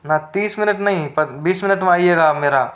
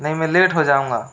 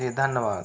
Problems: constant background noise